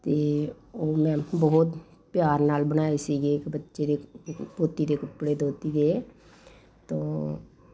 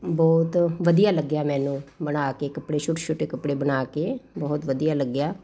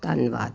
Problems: constant background noise